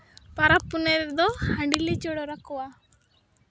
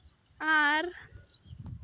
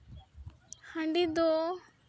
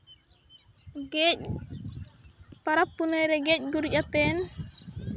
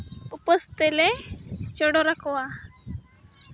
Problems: none marked